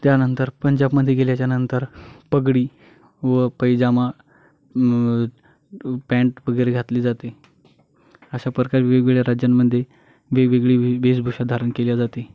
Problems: constant background noise, background conversations at intervals